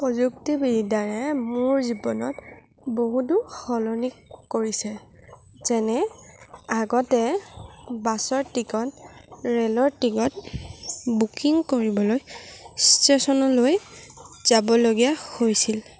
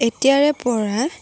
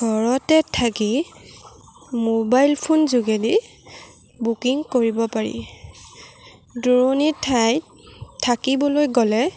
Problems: none marked